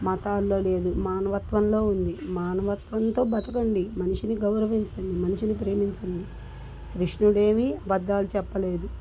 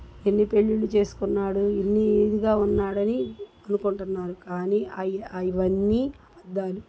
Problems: constant background noise